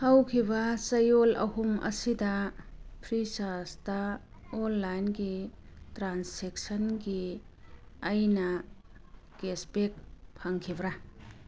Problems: background sounds at intervals